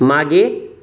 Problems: background sounds at intervals